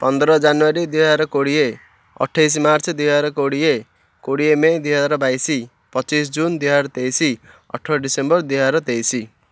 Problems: none marked